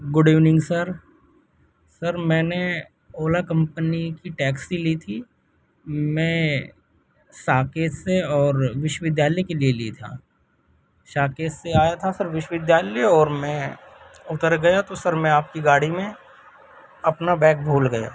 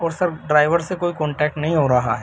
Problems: constant background noise